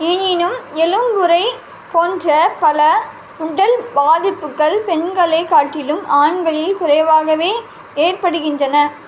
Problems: constant background noise